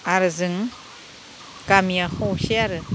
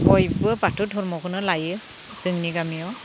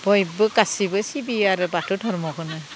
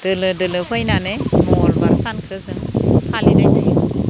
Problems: low volume